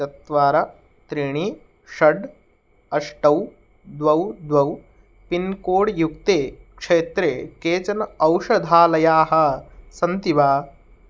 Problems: none marked